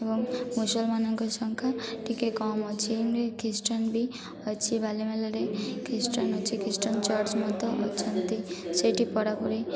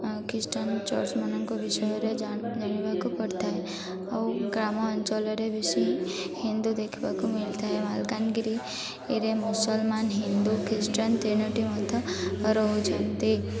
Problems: constant background noise, continuous background conversations